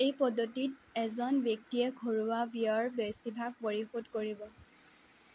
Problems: constant background noise